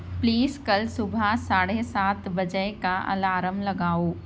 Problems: background sounds at intervals